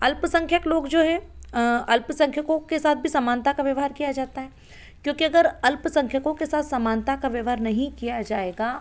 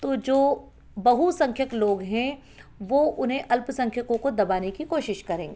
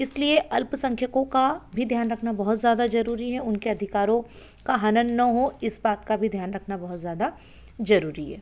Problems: none marked